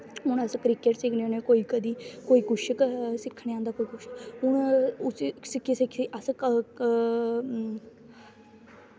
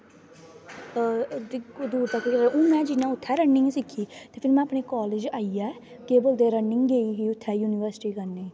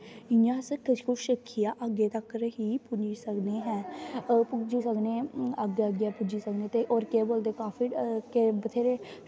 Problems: constant background noise